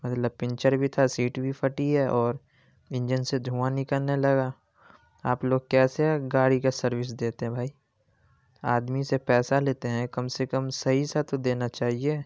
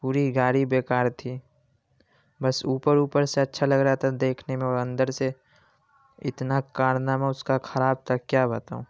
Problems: background sounds at intervals